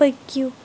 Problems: background sounds at intervals